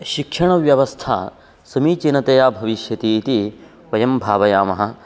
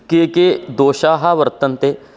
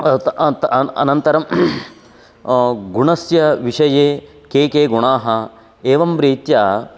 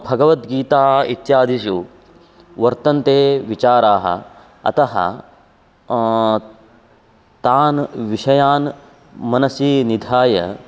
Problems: constant background noise